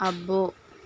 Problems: constant background noise